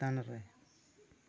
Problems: low volume